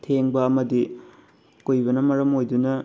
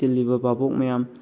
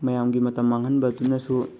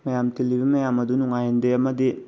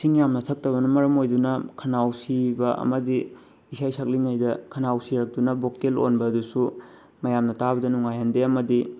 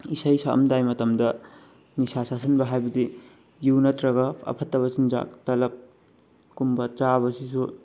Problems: background sounds at intervals